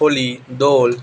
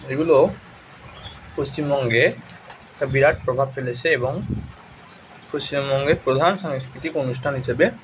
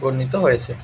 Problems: constant background noise